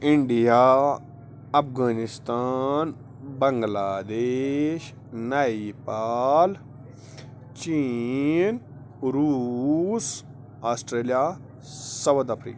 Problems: constant background noise